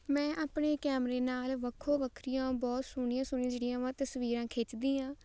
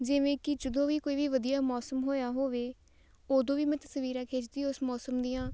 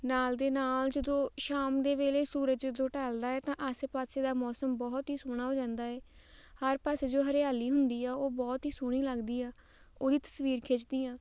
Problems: none marked